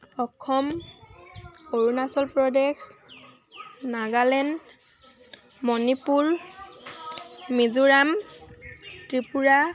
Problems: constant background noise